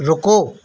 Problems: constant background noise